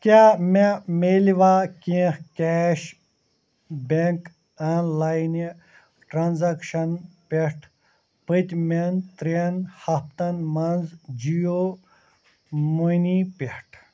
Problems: constant background noise